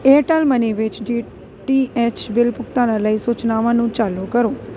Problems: constant background noise